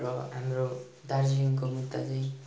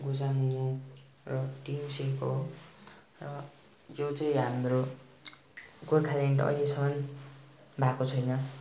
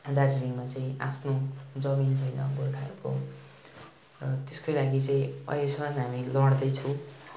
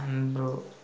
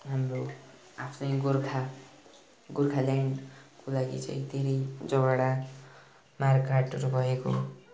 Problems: continuous background conversations